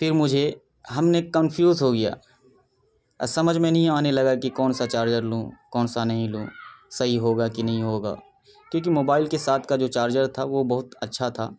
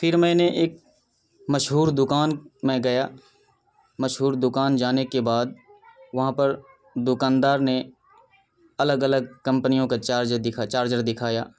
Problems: background sounds at intervals